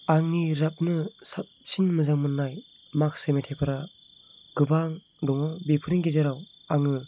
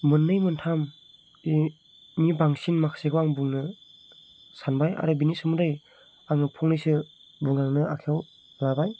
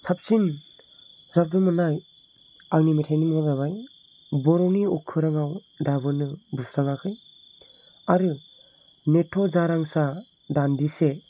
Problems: none marked